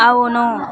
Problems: background conversations at intervals